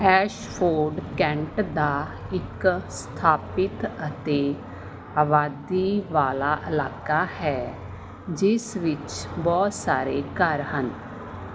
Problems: constant background noise